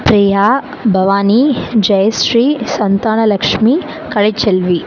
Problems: constant background noise, background conversations at intervals